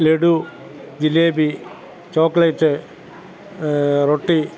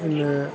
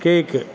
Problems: constant background noise, background conversations at intervals